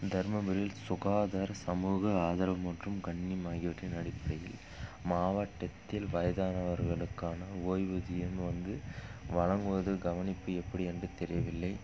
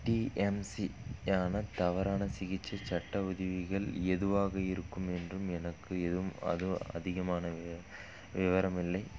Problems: background sounds at intervals